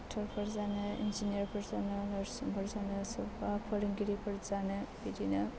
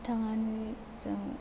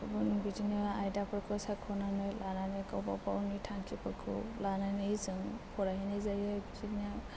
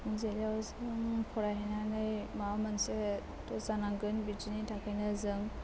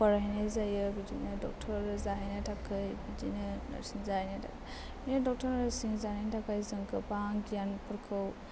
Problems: constant background noise